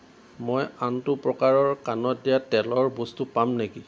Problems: constant background noise